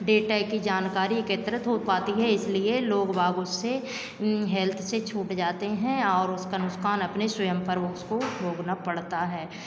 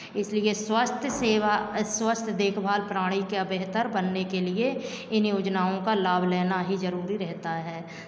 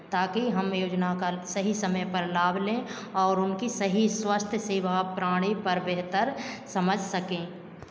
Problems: constant background noise, background conversations at intervals, echo